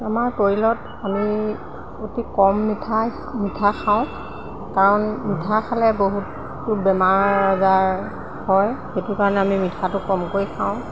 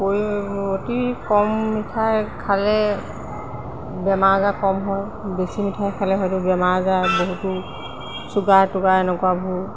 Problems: constant background noise